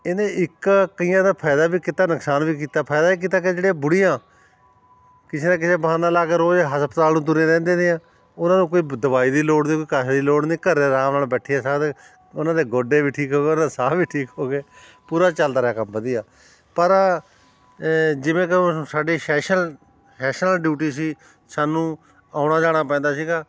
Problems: constant background noise